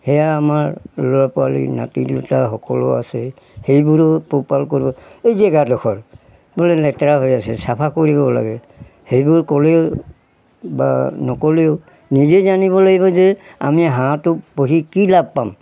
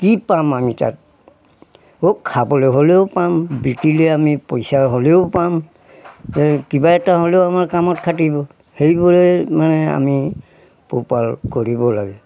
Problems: background sounds at intervals